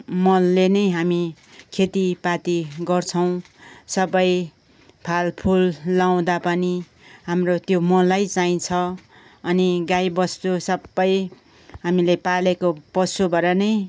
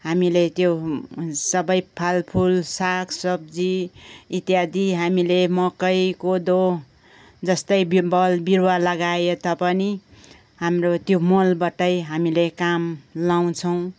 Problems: background conversations at intervals